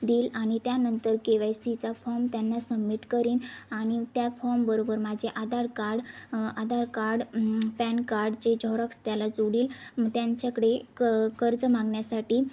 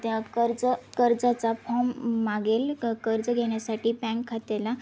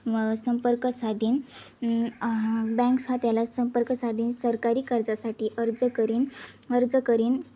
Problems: constant background noise, background conversations at intervals